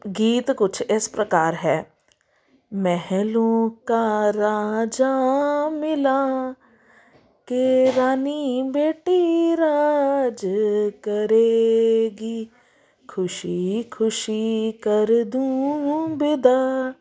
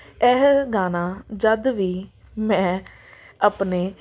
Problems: background sounds at intervals